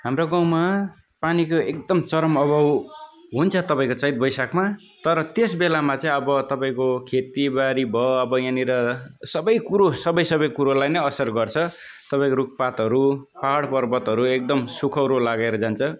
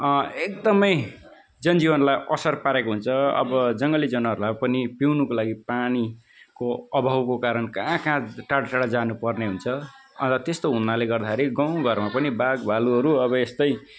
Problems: none marked